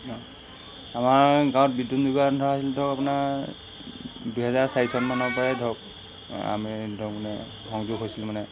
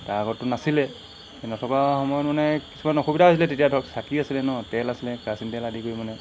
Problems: constant background noise